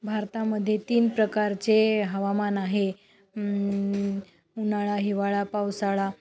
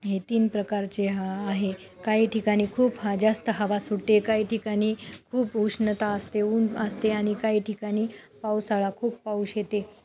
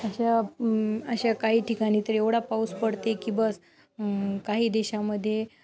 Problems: background sounds at intervals, background conversations at intervals